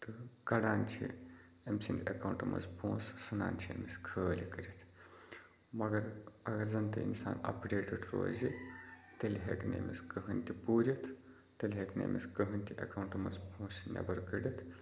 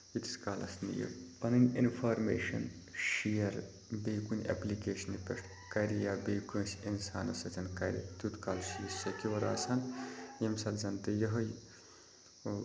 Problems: constant background noise, background conversations at intervals